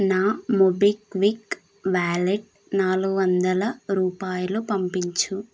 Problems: none marked